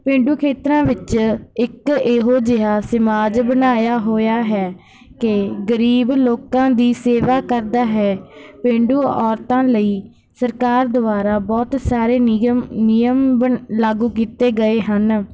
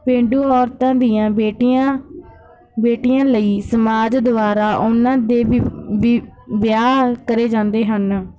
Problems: background sounds at intervals